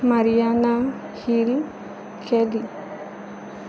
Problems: constant background noise